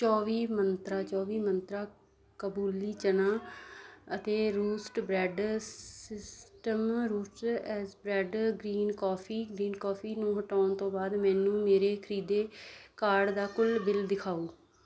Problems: constant background noise